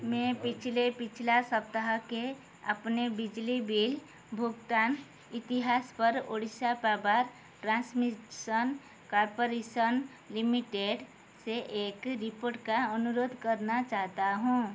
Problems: constant background noise